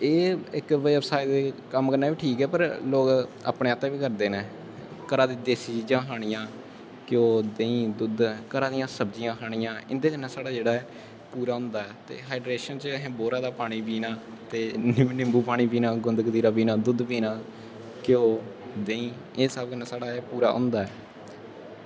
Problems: constant background noise